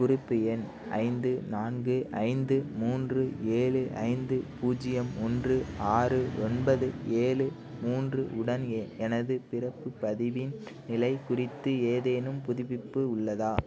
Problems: constant background noise, low volume